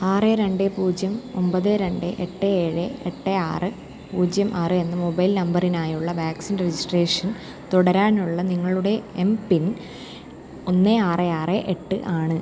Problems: low volume